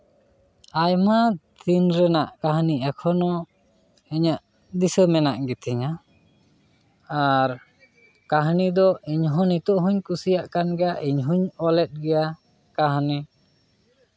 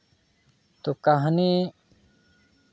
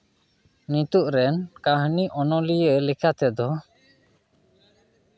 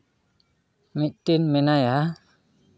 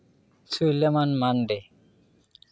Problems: none marked